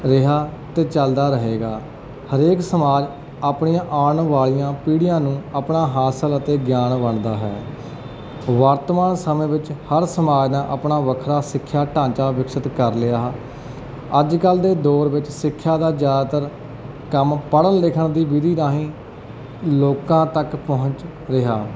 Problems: none marked